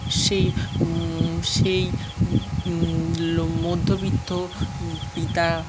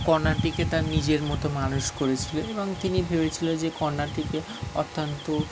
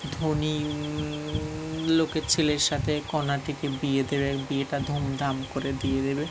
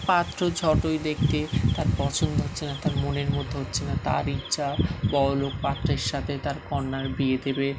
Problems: constant background noise, background conversations at intervals